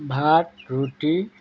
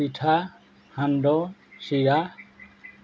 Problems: none marked